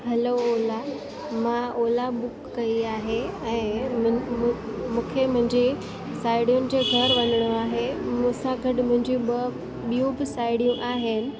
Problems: constant background noise